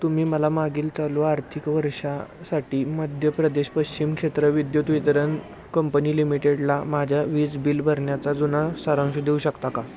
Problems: constant background noise